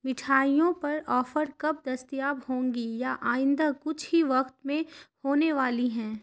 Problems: constant background noise